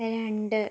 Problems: none marked